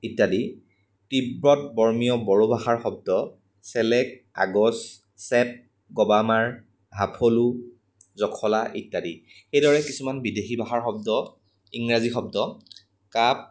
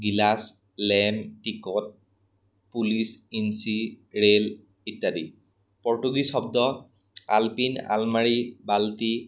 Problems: background sounds at intervals